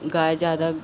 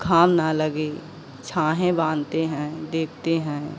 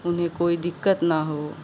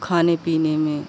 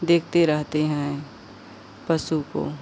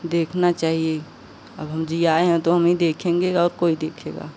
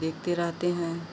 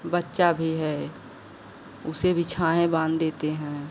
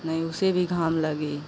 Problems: constant background noise